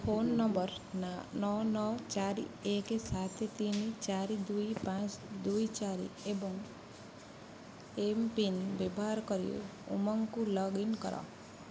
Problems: none marked